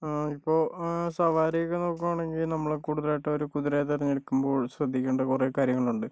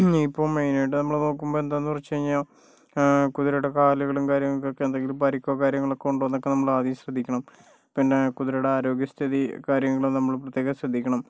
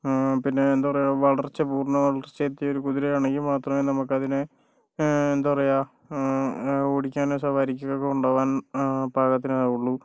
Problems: low volume